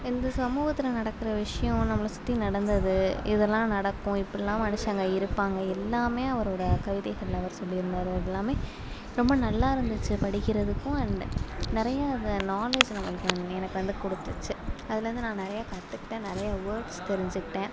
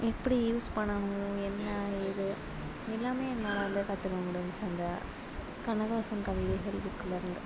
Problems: background sounds at intervals